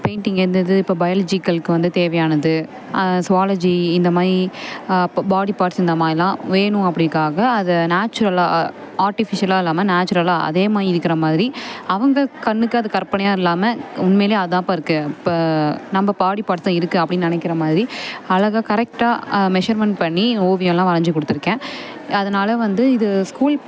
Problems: none marked